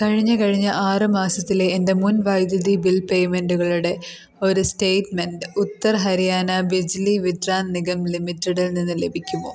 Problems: background sounds at intervals